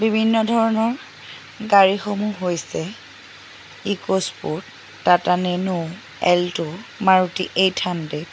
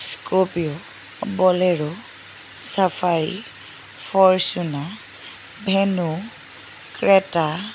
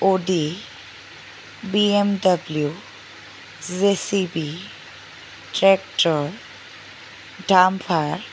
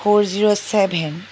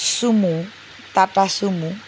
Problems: constant background noise